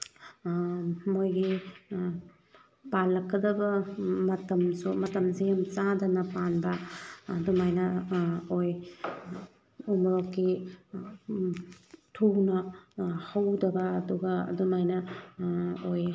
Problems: background sounds at intervals